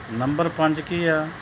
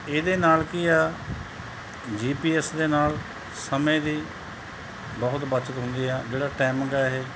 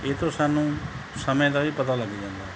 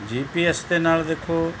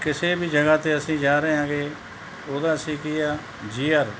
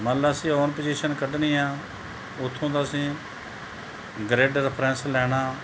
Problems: none marked